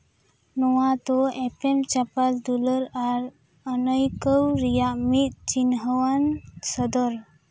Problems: background sounds at intervals